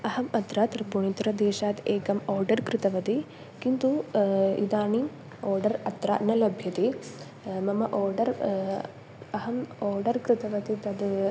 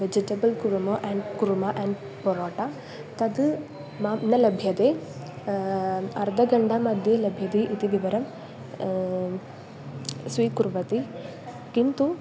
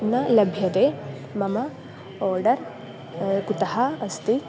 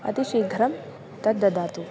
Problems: constant background noise